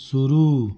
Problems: constant background noise